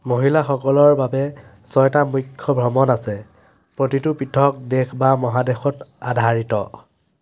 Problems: none marked